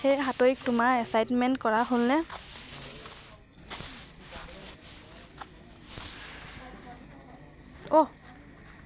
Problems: none marked